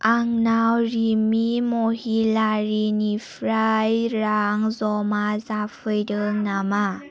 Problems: constant background noise